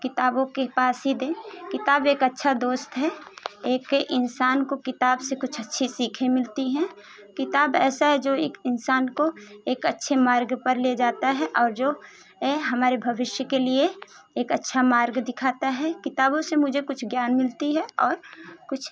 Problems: constant background noise